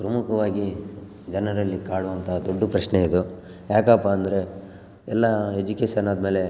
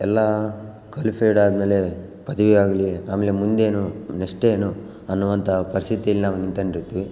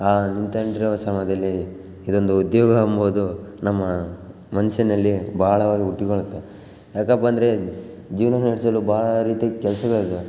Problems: background sounds at intervals